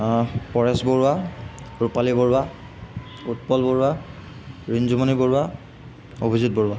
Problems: constant background noise